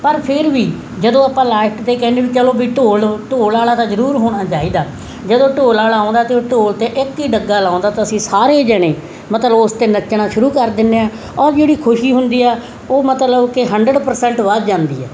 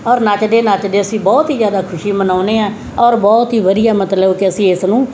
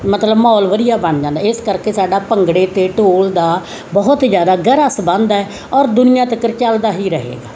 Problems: constant background noise